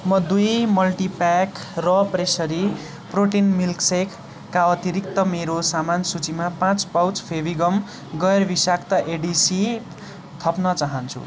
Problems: none marked